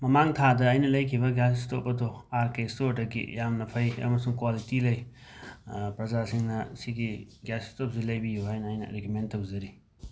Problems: background sounds at intervals